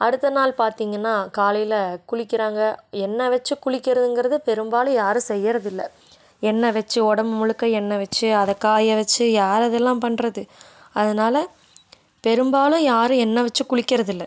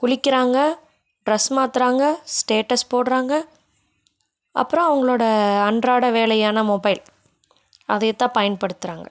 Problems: none marked